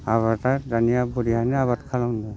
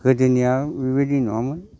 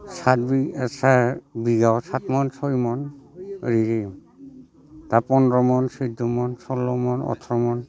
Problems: constant background noise